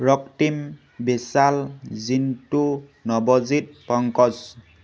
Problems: none marked